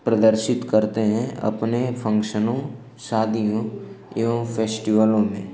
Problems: constant background noise, echo